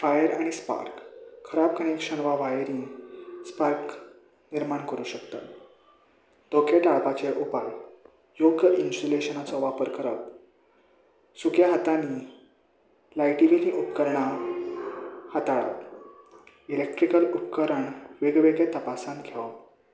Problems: none marked